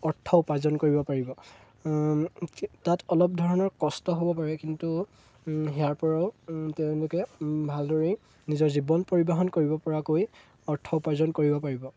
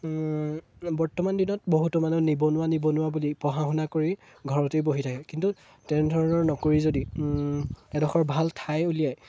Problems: none marked